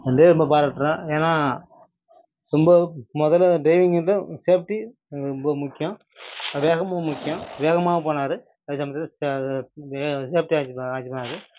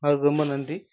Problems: background sounds at intervals